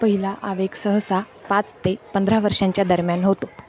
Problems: constant background noise, continuous background conversations